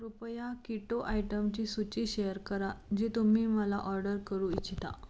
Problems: constant background noise, low volume